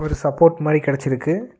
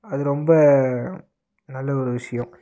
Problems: constant background noise